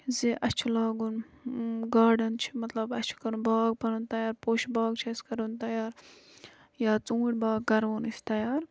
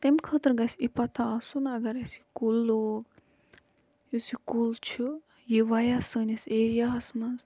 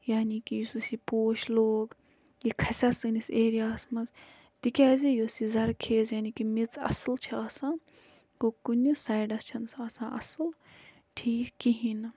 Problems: constant background noise